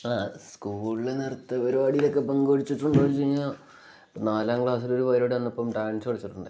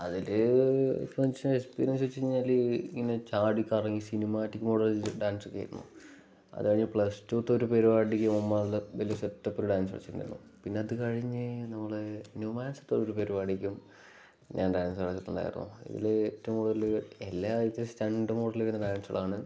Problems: none marked